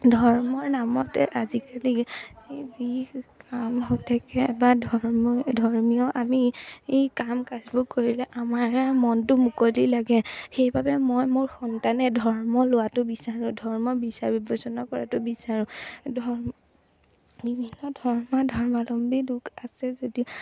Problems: none marked